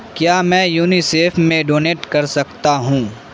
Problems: constant background noise